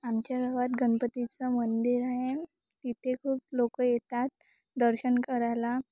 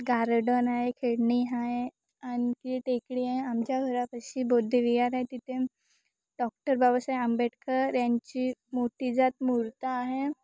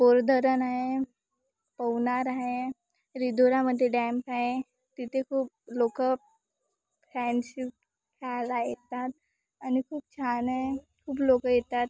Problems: background sounds at intervals